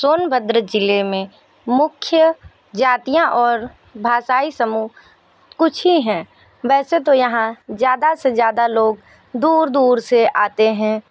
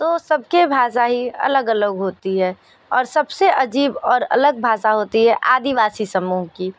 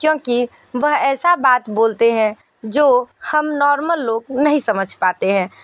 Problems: background sounds at intervals